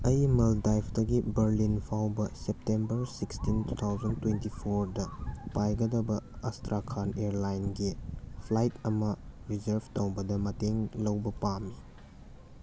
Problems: background sounds at intervals